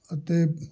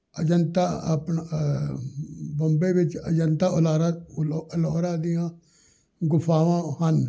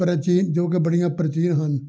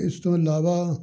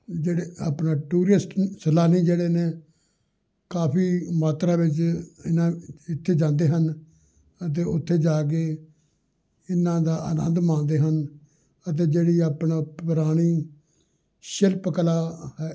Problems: none marked